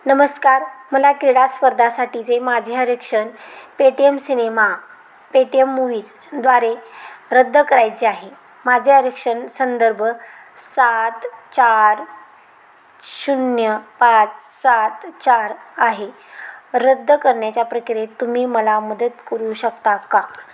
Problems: constant background noise